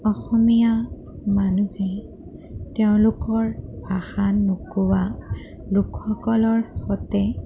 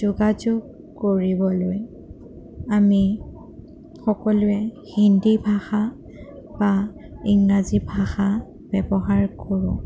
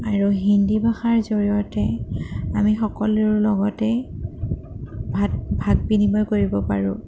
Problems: constant background noise